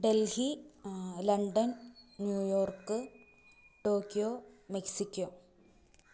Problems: none marked